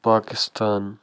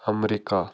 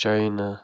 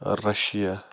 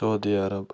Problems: background sounds at intervals